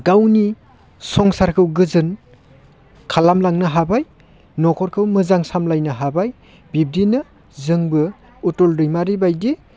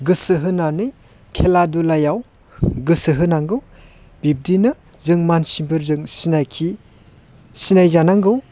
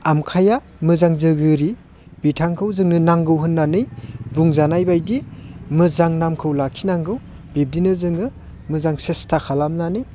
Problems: constant background noise